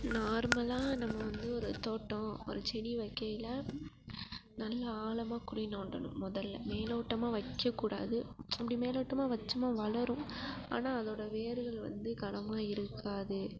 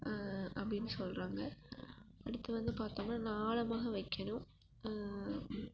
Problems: constant background noise, low volume